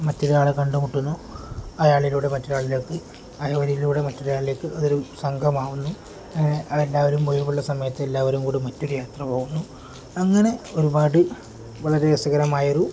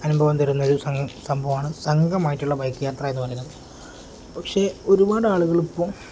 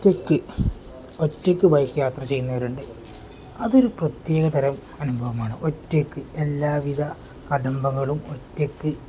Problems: none marked